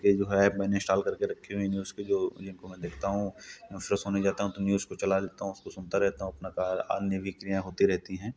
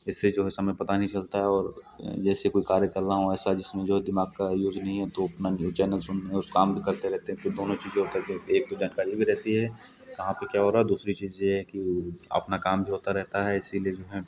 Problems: background sounds at intervals